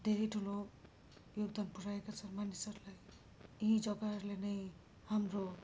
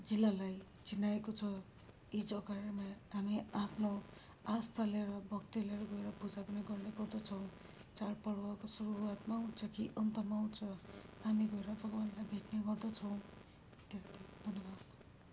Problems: background sounds at intervals